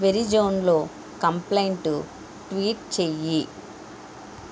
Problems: constant background noise